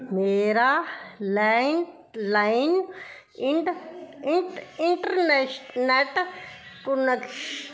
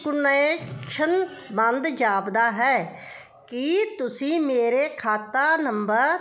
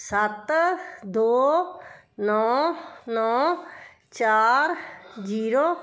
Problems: none marked